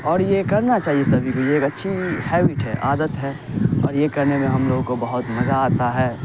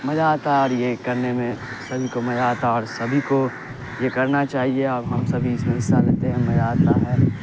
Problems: constant background noise